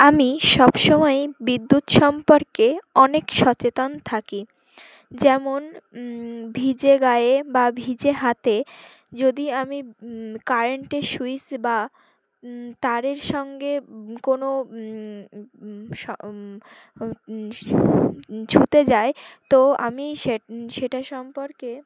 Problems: none marked